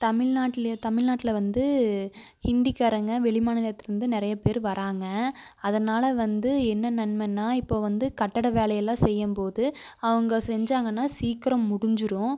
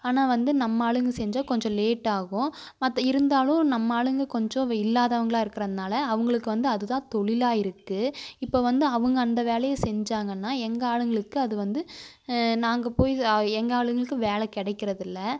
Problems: constant background noise